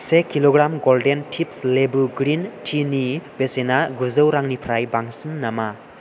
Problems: constant background noise